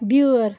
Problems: constant background noise